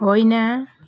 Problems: background sounds at intervals